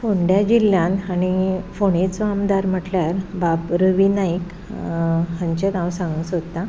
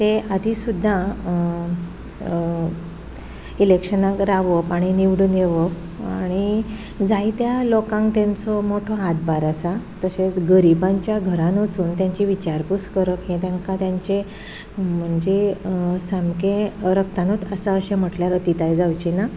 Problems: background sounds at intervals